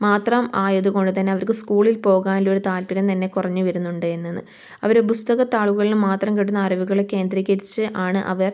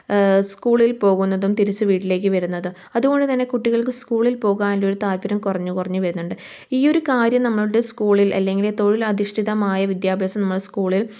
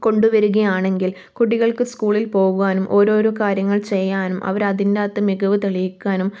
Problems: none marked